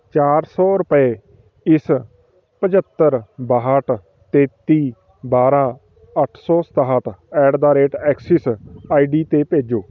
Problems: continuous background conversations